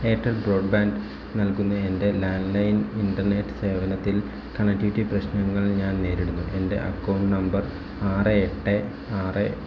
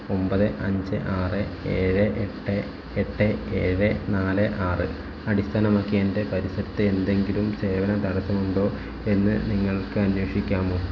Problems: low volume